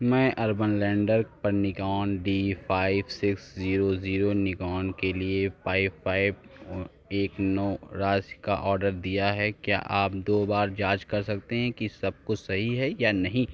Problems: none marked